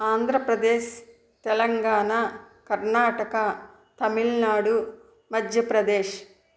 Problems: background sounds at intervals